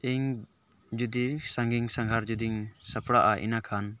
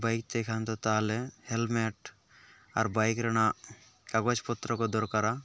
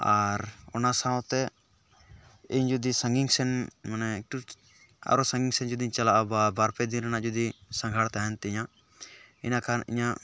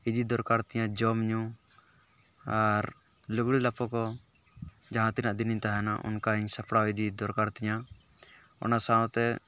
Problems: none marked